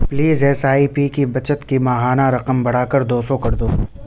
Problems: background sounds at intervals